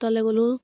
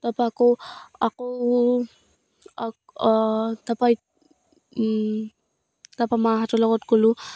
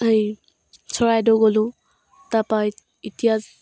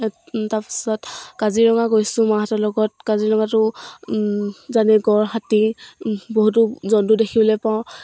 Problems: none marked